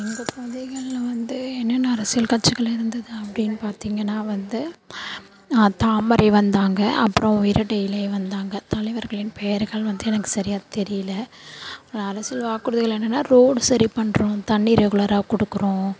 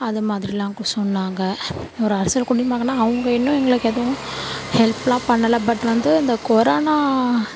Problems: constant background noise